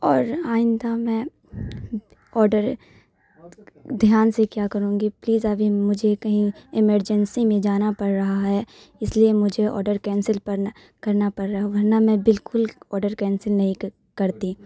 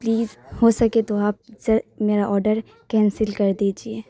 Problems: none marked